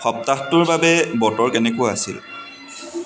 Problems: none marked